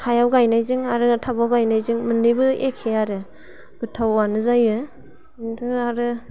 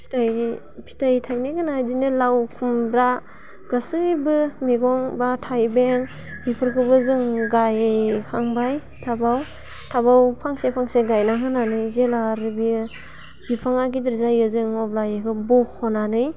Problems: constant background noise